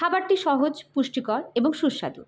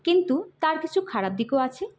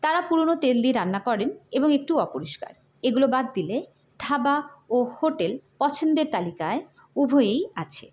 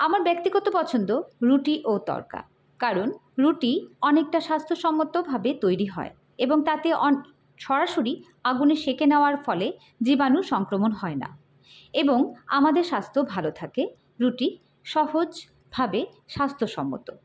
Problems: none marked